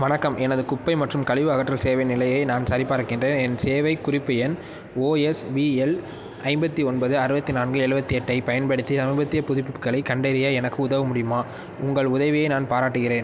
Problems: none marked